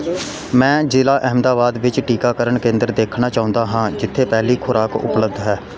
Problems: continuous background conversations